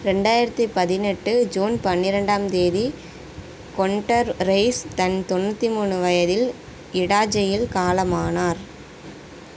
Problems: constant background noise